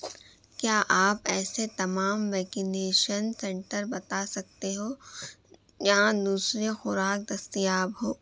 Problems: constant background noise, low volume